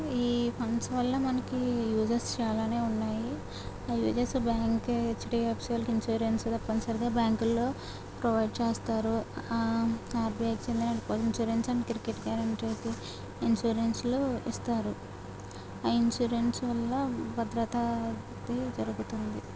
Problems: none marked